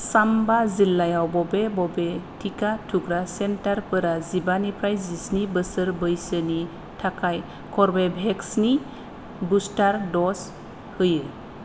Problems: none marked